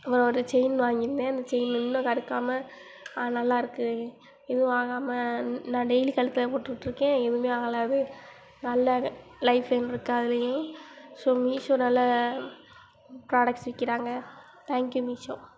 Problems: constant background noise